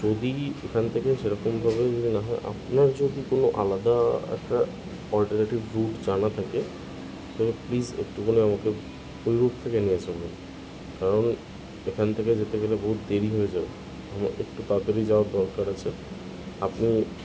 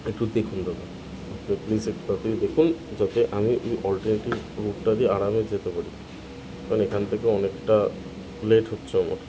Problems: constant background noise